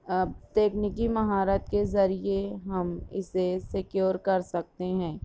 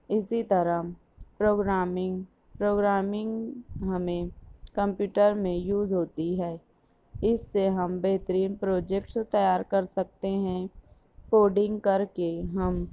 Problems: background sounds at intervals